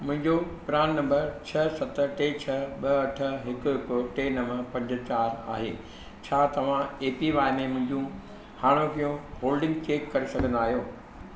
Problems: constant background noise, low volume